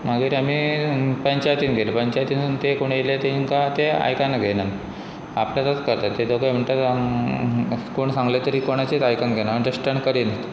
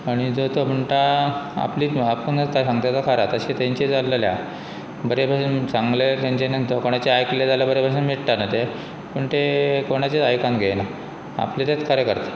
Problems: constant background noise